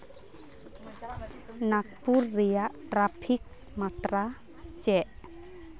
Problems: constant background noise